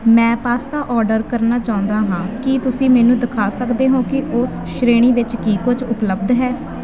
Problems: constant background noise